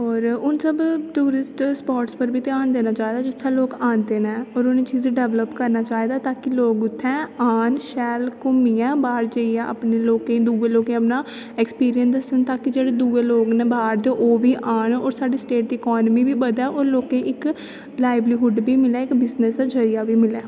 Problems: constant background noise